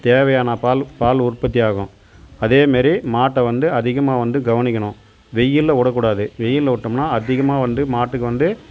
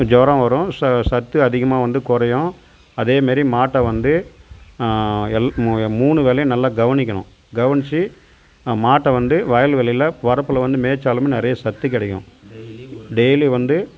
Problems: constant background noise